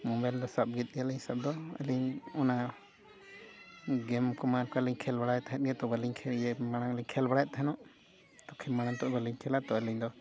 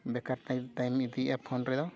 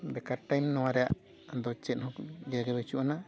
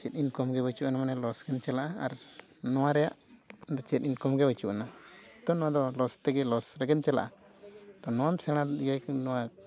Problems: background sounds at intervals, background conversations at intervals, low volume